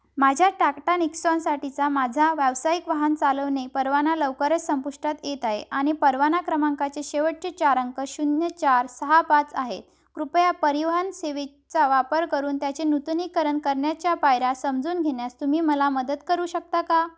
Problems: background sounds at intervals